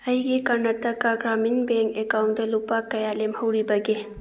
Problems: none marked